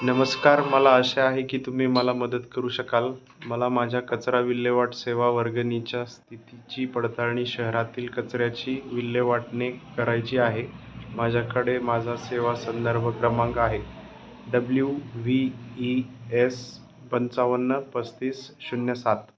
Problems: background sounds at intervals